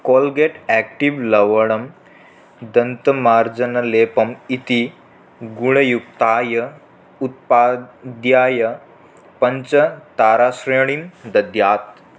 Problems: none marked